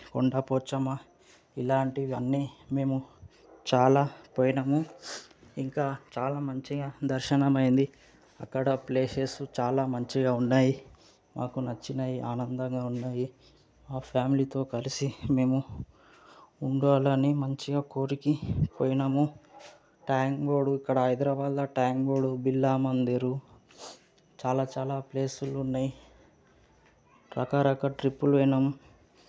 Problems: background sounds at intervals